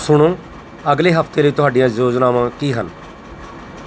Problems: constant background noise